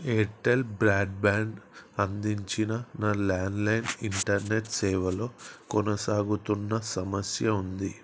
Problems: constant background noise